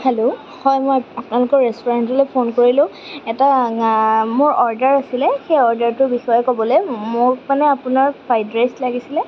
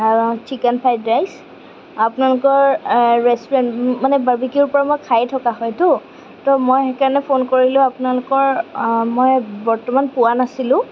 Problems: none marked